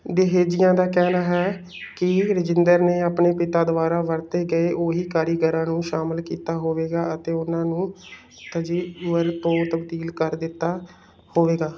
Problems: none marked